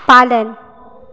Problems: background sounds at intervals